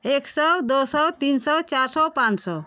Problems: none marked